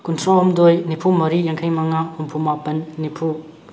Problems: none marked